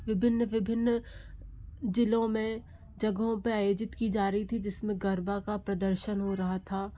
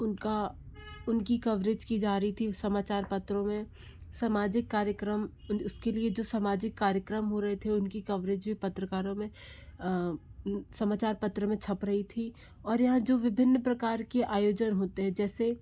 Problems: background sounds at intervals